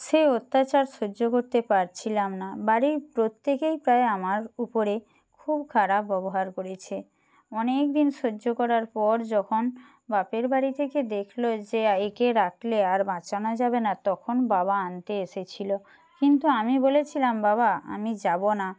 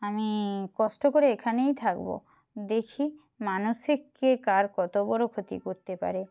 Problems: background sounds at intervals